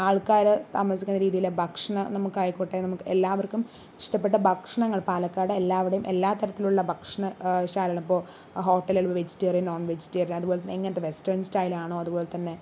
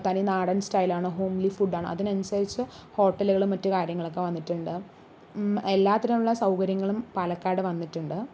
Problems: none marked